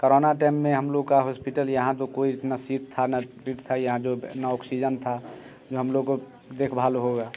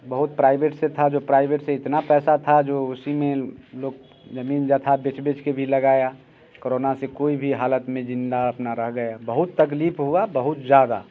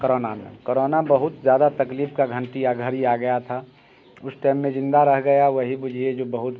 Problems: background sounds at intervals